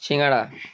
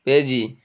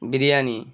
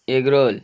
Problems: constant background noise